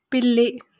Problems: none marked